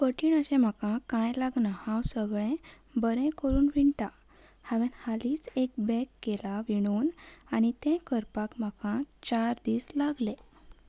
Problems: background sounds at intervals